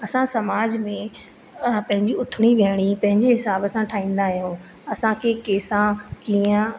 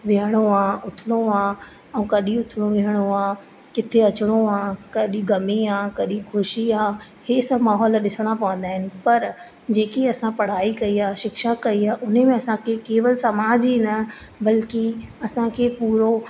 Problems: constant background noise, echo